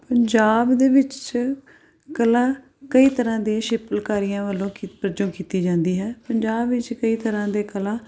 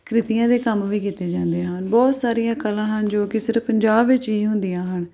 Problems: background sounds at intervals